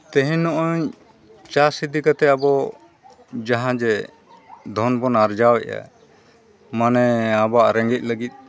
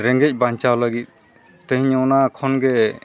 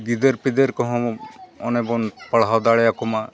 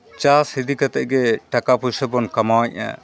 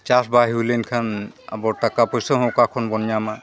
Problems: constant background noise, continuous background conversations